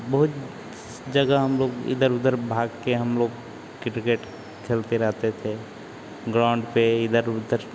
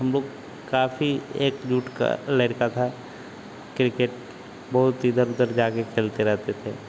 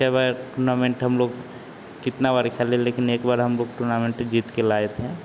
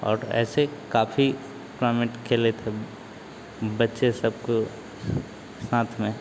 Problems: constant background noise